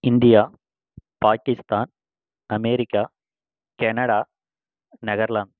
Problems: constant background noise